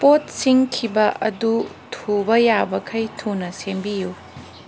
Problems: background sounds at intervals